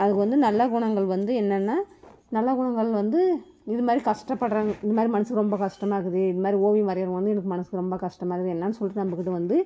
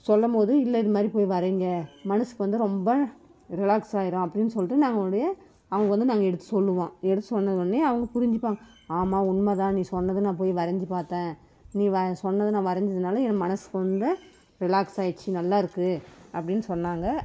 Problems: background sounds at intervals